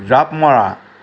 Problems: constant background noise